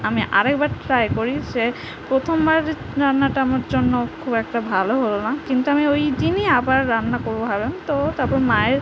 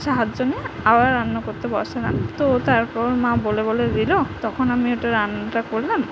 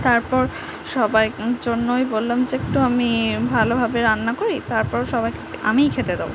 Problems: constant background noise